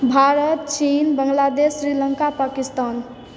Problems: none marked